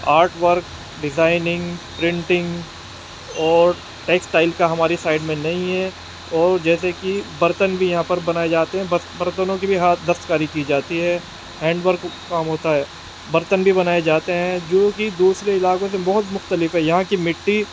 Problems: constant background noise